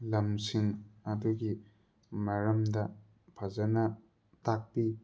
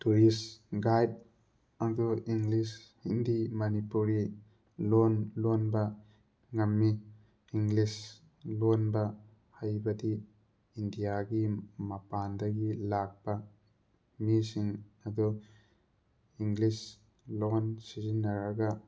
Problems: background sounds at intervals